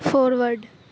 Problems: constant background noise